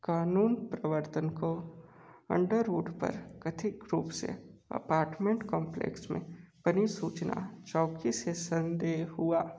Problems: low volume